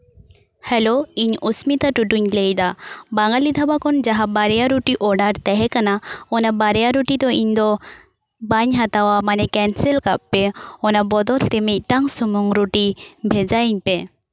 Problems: none marked